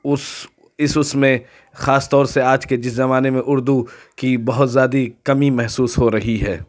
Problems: none marked